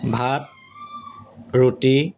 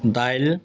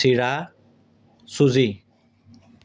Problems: constant background noise